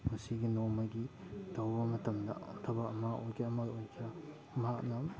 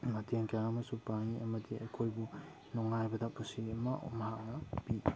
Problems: background sounds at intervals